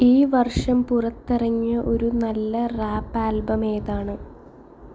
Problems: background sounds at intervals